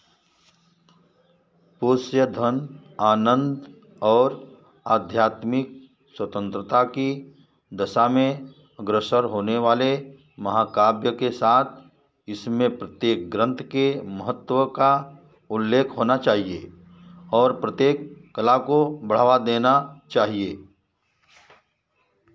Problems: background sounds at intervals